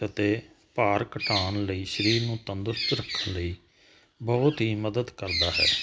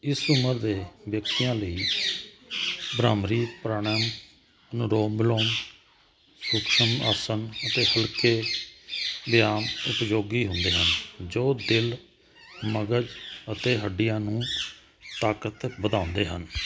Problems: none marked